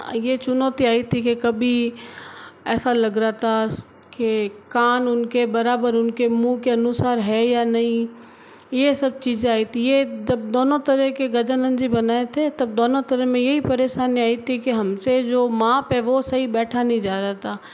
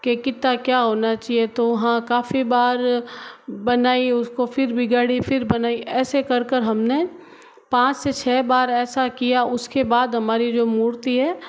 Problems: constant background noise